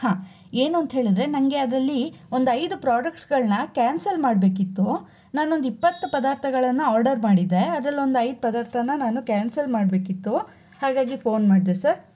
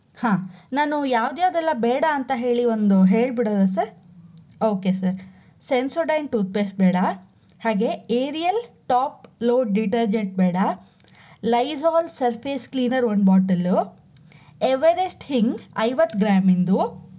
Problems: none marked